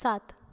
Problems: none marked